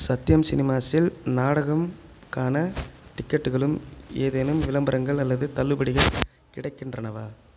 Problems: background sounds at intervals